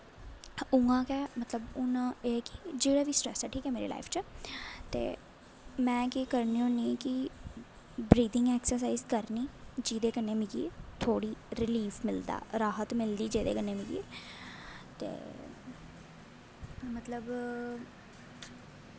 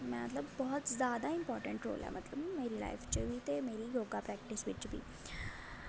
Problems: constant background noise, low volume